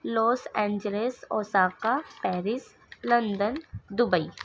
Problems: none marked